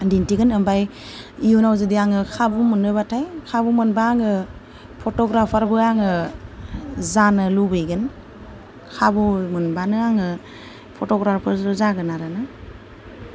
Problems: low volume